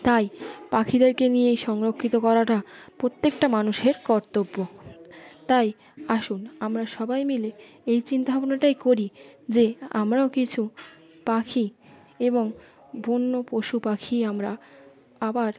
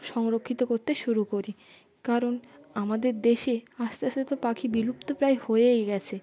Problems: constant background noise, continuous background conversations